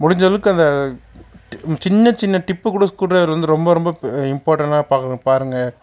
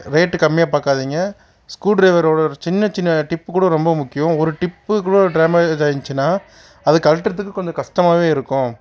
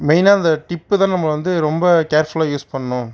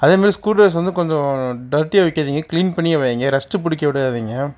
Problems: none marked